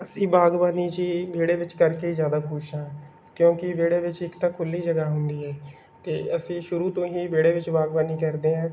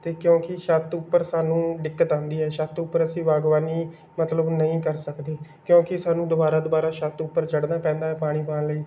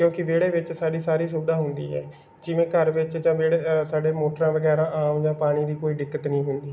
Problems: background sounds at intervals